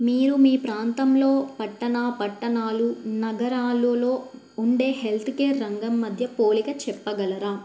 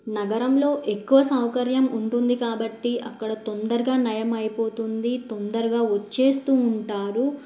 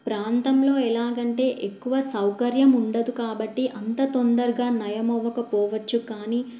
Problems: none marked